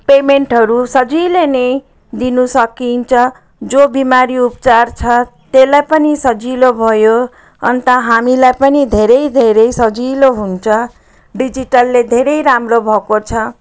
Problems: none marked